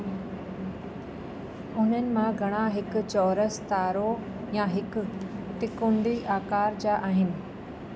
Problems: constant background noise, echo